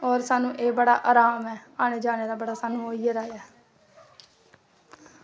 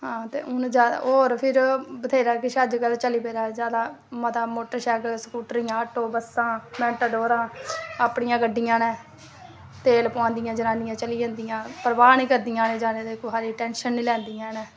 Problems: background sounds at intervals